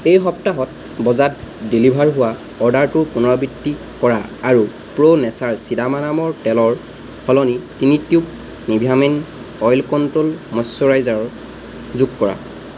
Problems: constant background noise